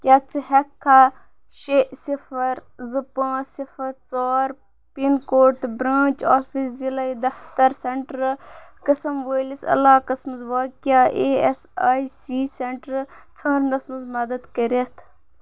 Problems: none marked